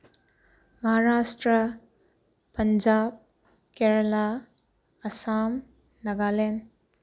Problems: none marked